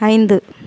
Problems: none marked